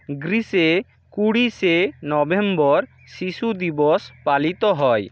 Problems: constant background noise